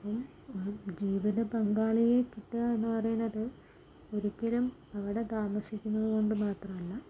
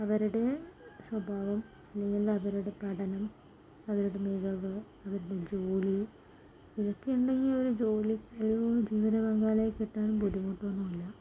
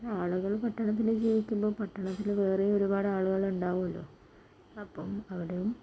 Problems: low volume